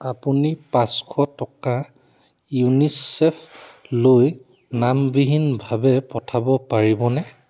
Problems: none marked